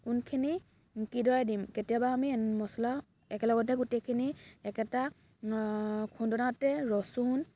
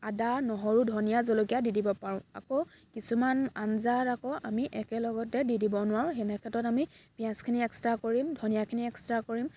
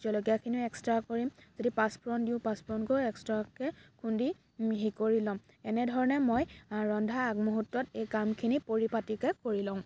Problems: background sounds at intervals